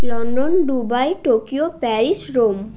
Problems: none marked